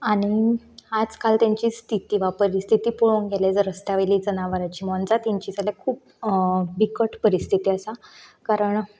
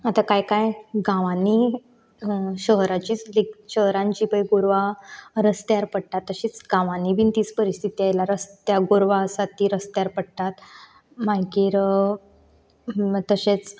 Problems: none marked